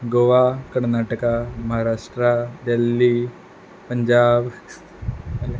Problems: background sounds at intervals